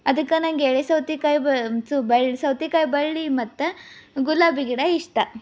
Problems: none marked